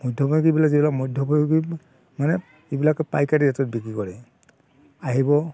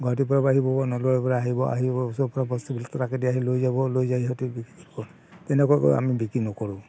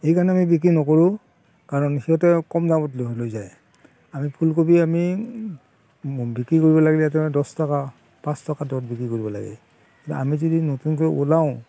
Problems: constant background noise, background conversations at intervals